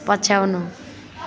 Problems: continuous background conversations